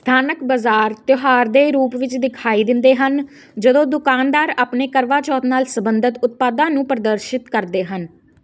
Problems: constant background noise